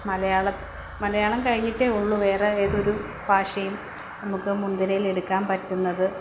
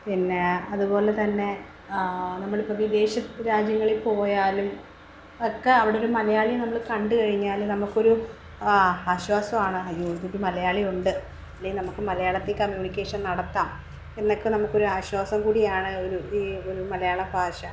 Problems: background sounds at intervals